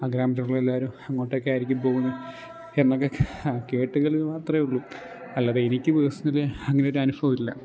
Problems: low volume